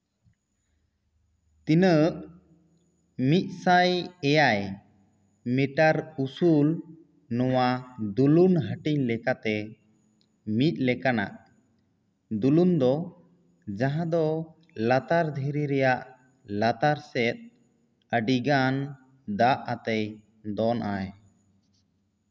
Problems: echo